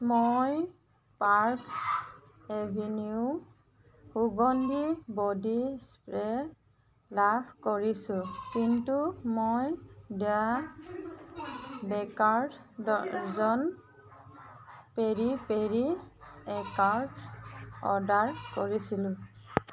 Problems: constant background noise, background conversations at intervals